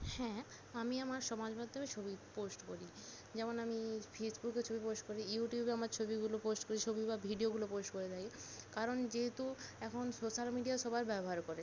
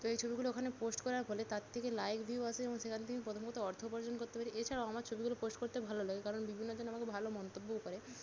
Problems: constant background noise